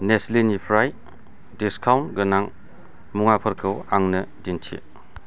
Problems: none marked